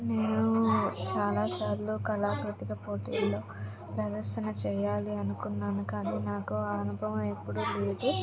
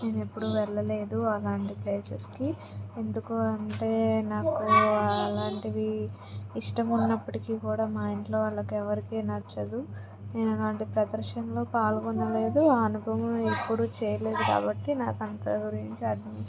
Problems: constant background noise, background conversations at intervals